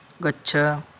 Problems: constant background noise